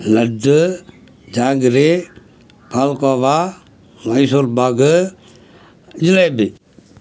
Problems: background sounds at intervals